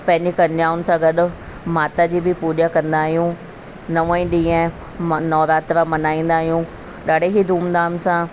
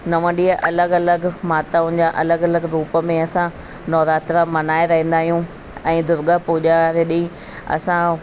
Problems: constant background noise